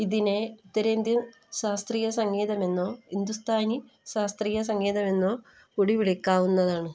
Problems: low volume